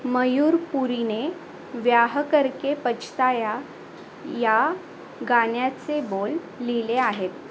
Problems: constant background noise